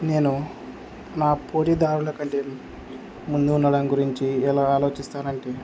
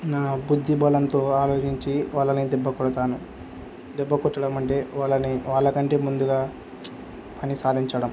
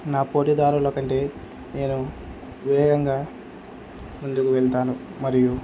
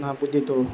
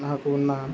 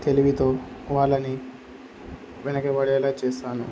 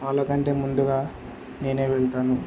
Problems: constant background noise